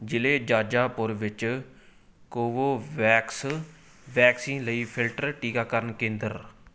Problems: background sounds at intervals